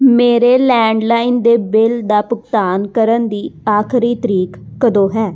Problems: background sounds at intervals